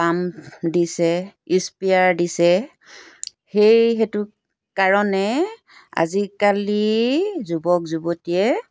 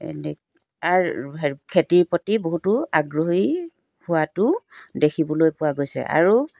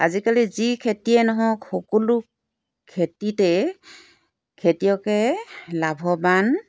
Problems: background sounds at intervals